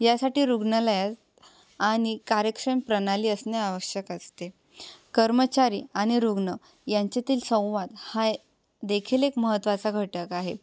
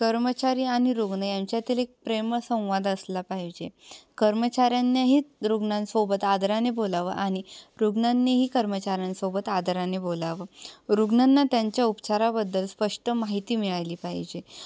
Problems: none marked